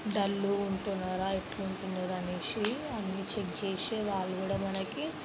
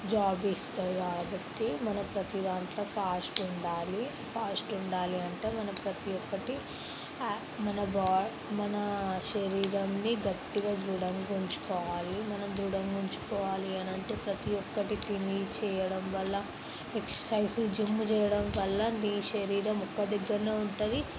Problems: constant background noise